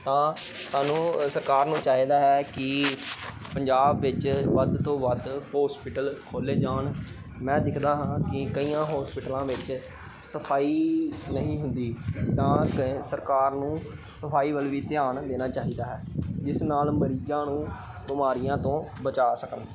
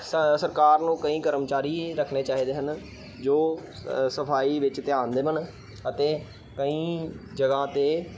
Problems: background sounds at intervals, background conversations at intervals